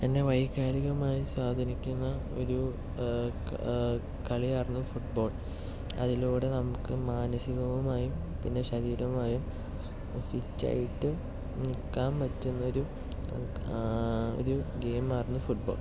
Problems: none marked